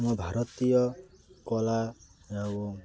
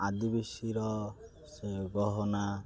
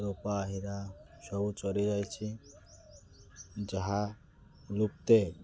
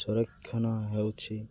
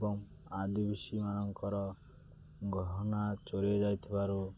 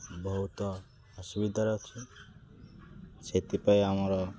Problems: constant background noise